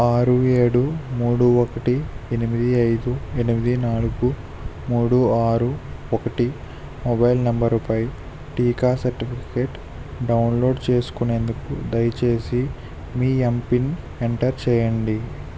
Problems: constant background noise